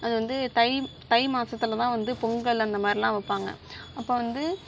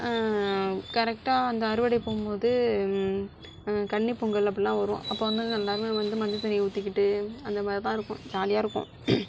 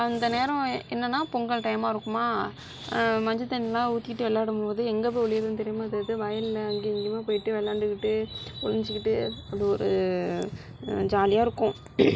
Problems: background sounds at intervals